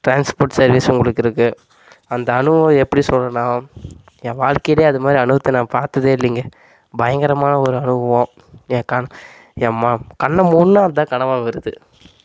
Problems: constant background noise